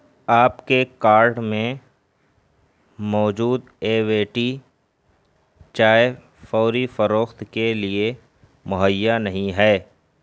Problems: constant background noise